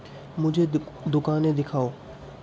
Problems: constant background noise, low volume